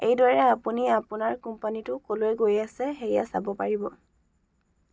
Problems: none marked